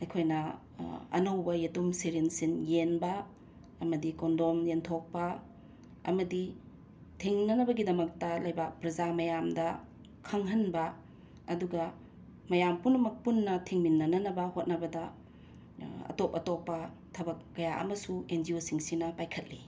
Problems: constant background noise